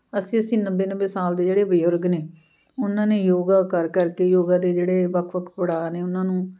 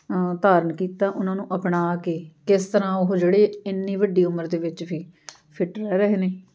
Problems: constant background noise